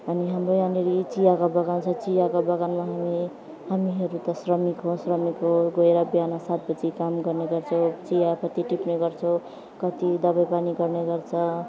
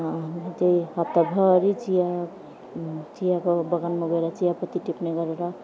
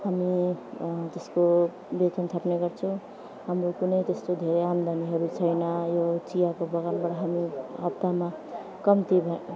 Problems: none marked